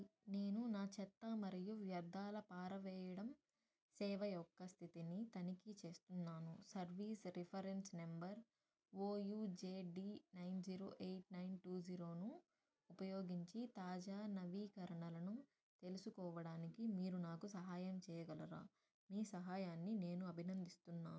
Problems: low volume